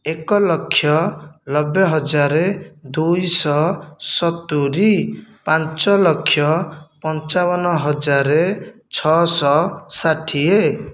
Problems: none marked